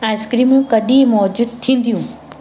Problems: constant background noise, echo